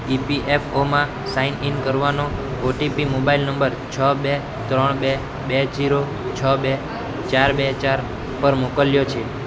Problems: constant background noise